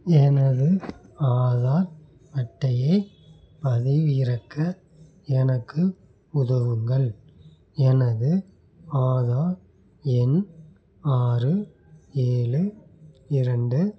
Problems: none marked